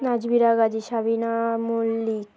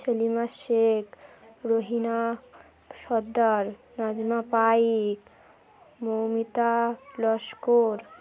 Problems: none marked